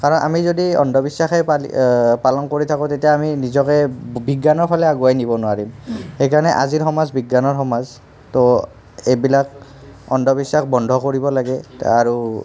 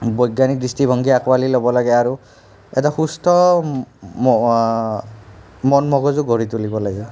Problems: background conversations at intervals